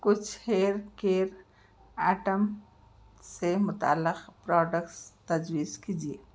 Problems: none marked